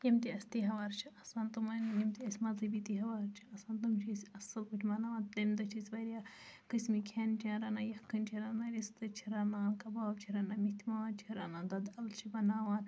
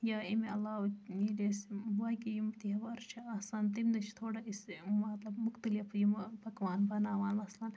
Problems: low volume